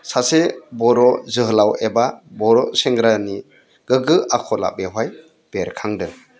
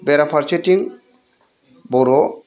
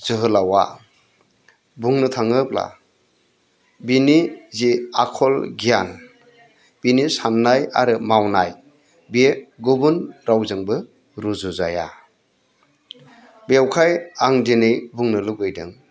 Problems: none marked